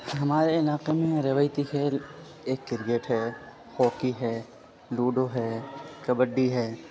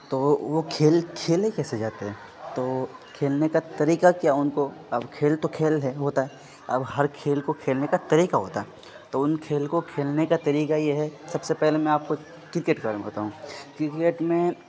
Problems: constant background noise